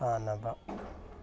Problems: background conversations at intervals